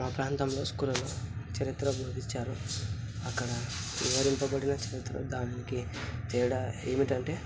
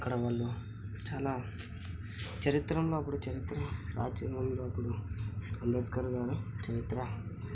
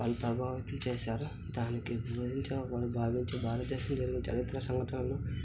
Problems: constant background noise